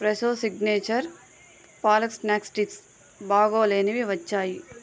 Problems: constant background noise